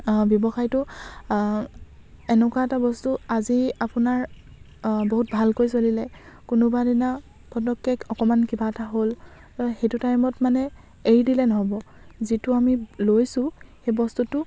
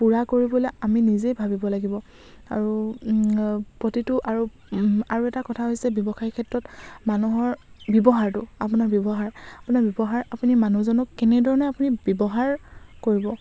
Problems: constant background noise